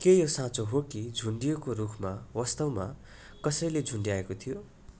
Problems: background sounds at intervals